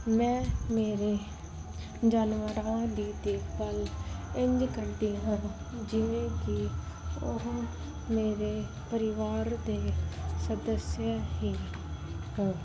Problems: constant background noise